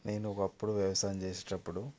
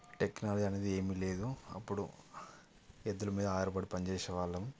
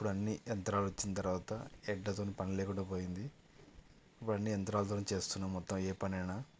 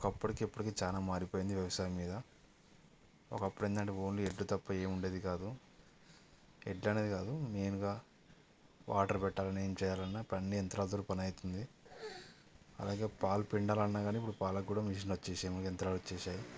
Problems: none marked